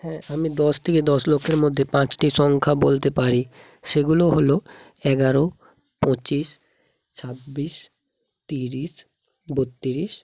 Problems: constant background noise